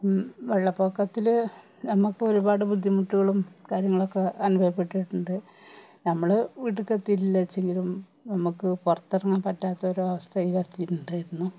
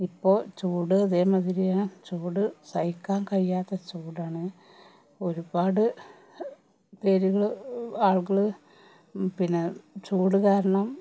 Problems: none marked